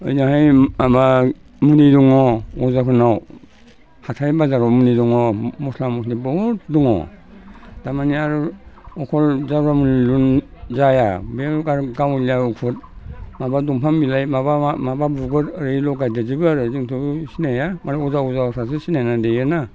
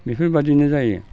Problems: constant background noise